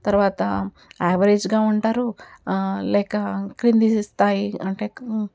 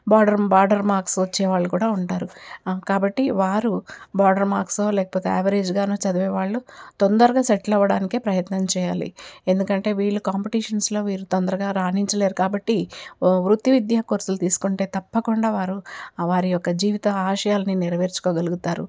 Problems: none marked